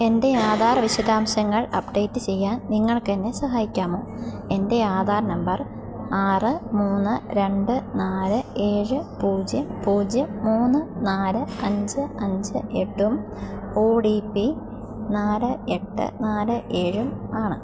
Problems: background sounds at intervals